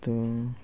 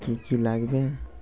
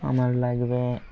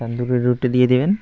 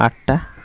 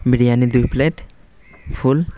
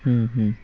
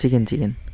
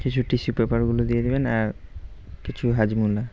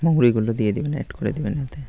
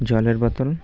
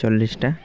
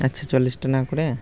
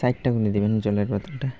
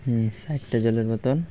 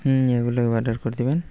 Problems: constant background noise